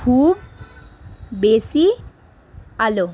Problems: constant background noise